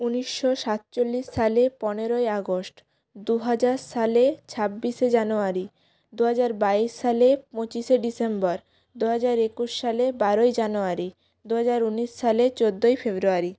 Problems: constant background noise